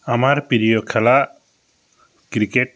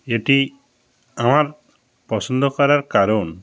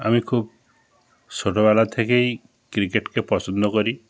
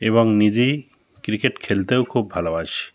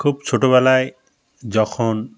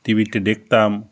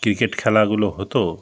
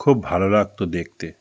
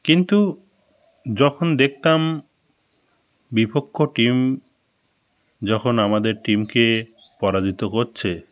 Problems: constant background noise